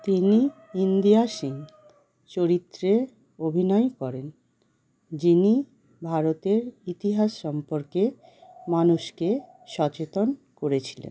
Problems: constant background noise